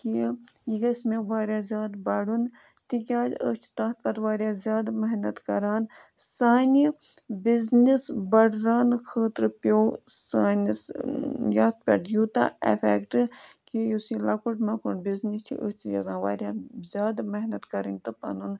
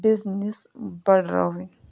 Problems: background sounds at intervals